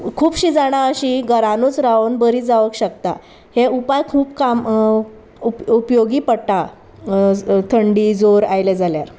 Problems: constant background noise, background conversations at intervals